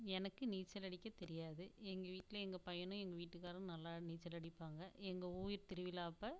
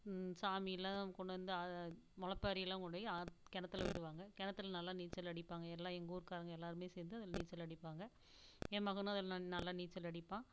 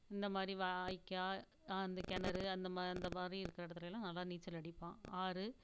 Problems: none marked